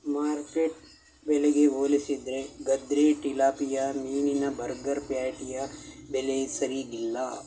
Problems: none marked